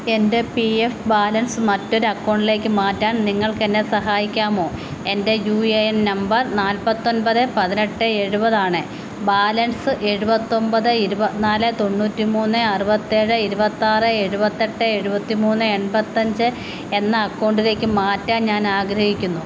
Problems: constant background noise